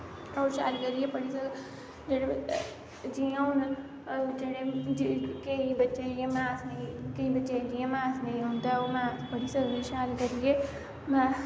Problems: constant background noise